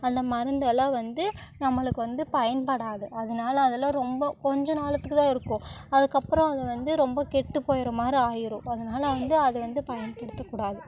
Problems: background conversations at intervals